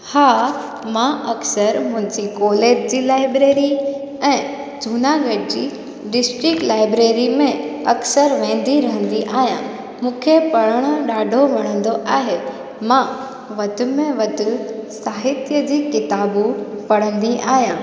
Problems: constant background noise, echo